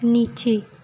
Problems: constant background noise